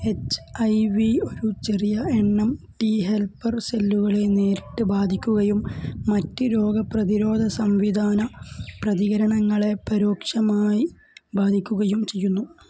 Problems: background sounds at intervals, low volume